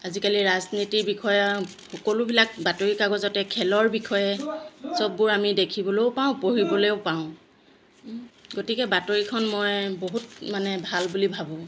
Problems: none marked